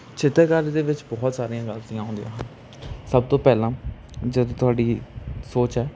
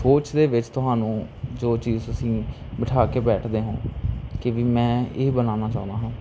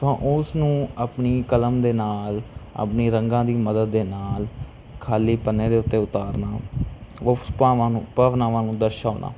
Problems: constant background noise